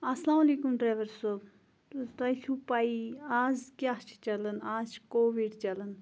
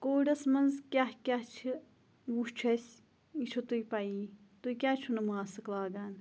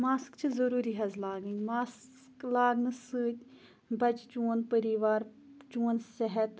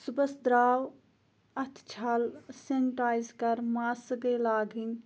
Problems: none marked